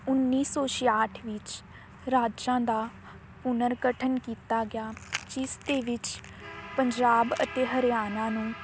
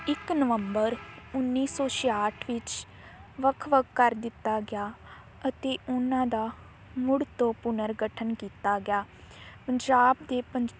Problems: constant background noise